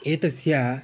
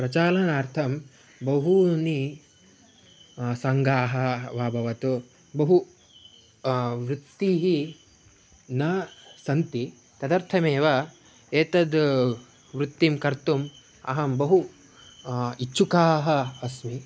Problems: background sounds at intervals